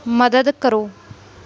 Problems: none marked